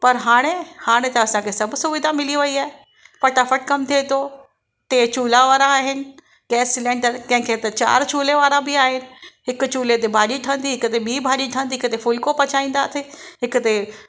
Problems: background sounds at intervals